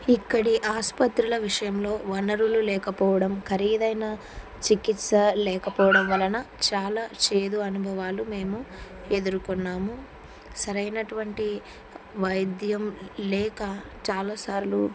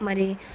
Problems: none marked